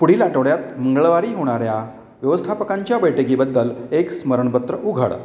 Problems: none marked